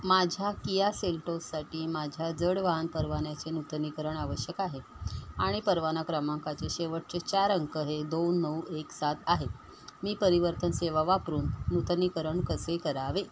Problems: none marked